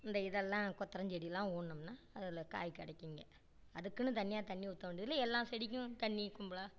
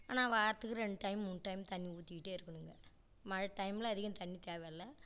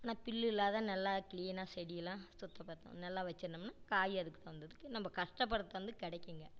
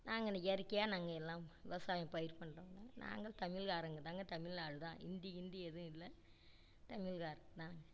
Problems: low volume